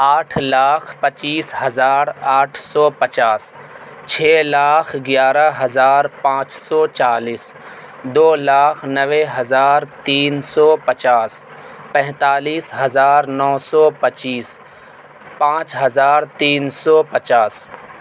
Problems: constant background noise